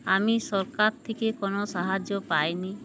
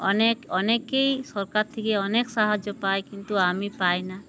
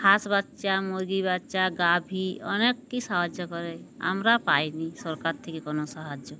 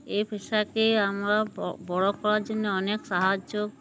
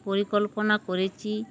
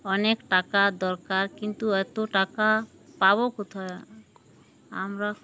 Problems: background sounds at intervals